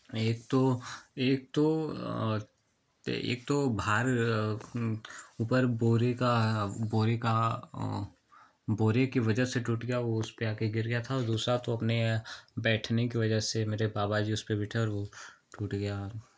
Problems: none marked